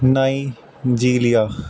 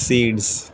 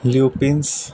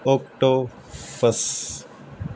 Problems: constant background noise